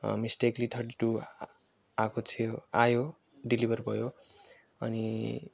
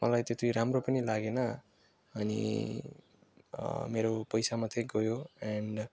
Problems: none marked